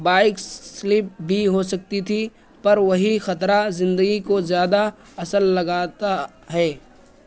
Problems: constant background noise